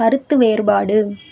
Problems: none marked